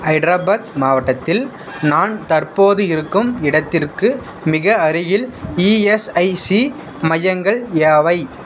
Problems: background sounds at intervals